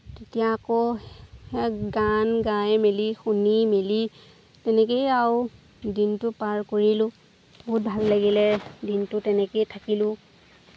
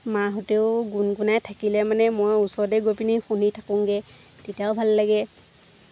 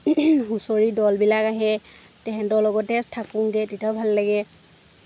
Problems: constant background noise